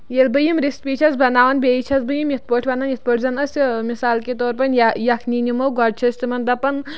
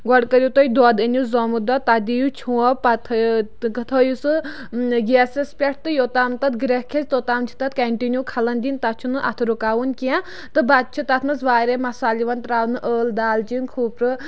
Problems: none marked